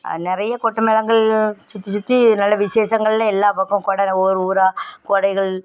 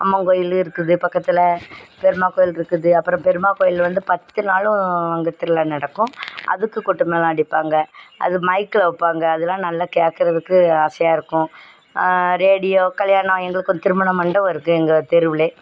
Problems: background sounds at intervals